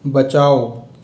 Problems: constant background noise, echo